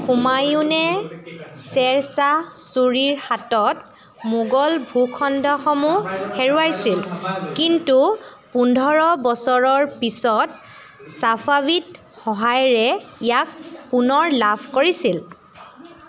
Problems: constant background noise, background conversations at intervals